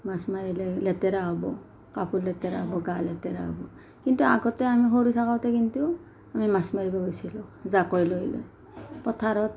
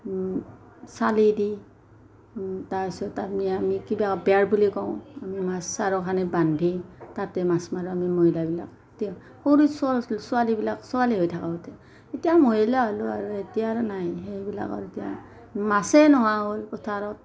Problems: background conversations at intervals